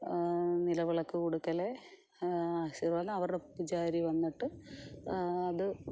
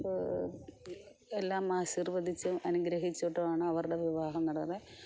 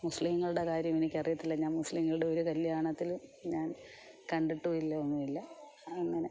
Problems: none marked